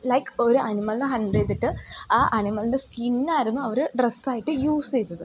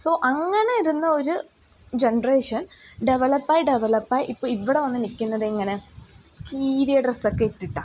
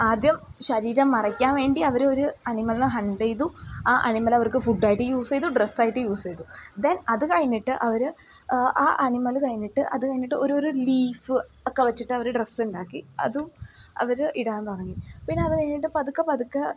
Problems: background sounds at intervals